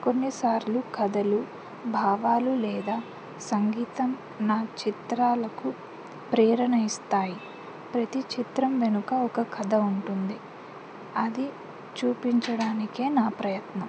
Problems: constant background noise